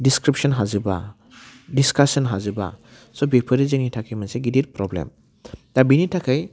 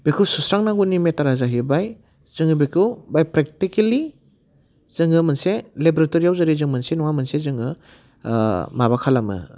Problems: low volume